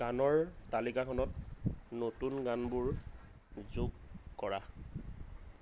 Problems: constant background noise